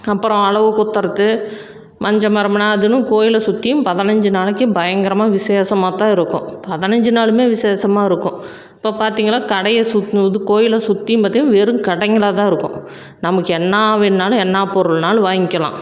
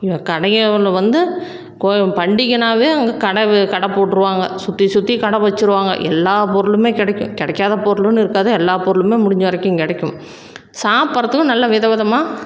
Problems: none marked